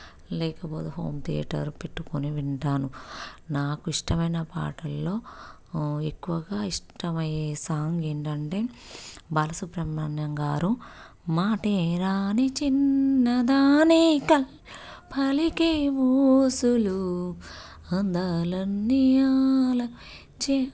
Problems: none marked